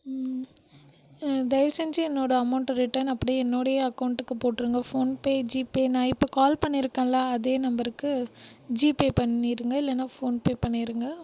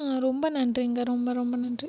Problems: none marked